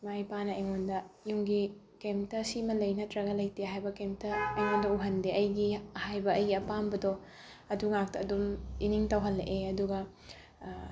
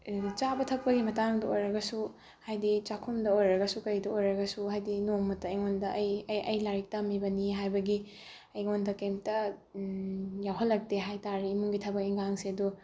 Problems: none marked